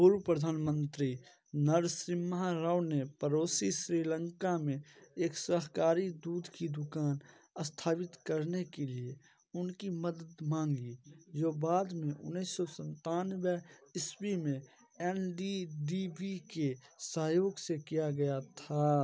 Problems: none marked